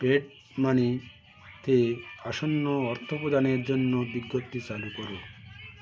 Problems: continuous background conversations